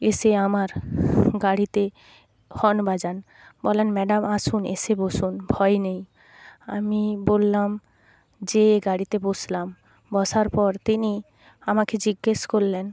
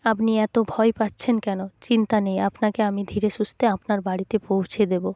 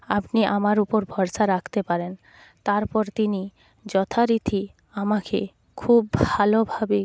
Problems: background sounds at intervals